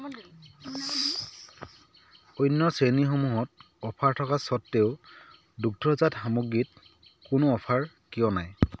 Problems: constant background noise